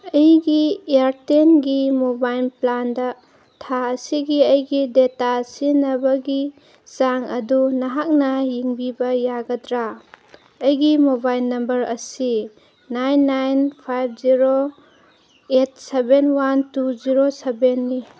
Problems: background sounds at intervals